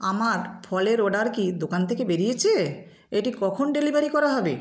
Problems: background sounds at intervals